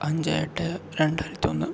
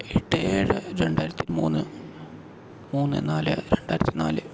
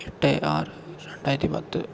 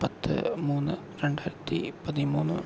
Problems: low volume